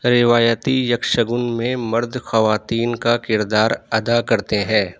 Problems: none marked